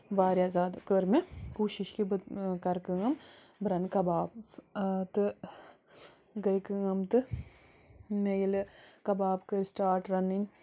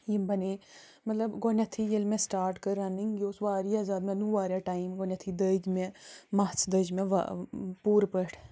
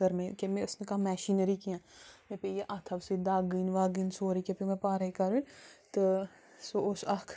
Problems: constant background noise